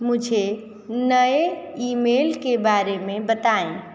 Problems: constant background noise